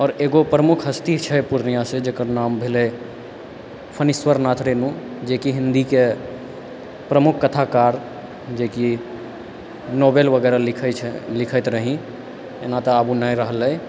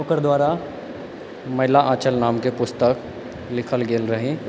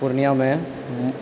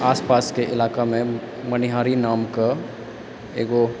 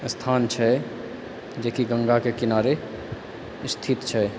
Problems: constant background noise